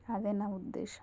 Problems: low volume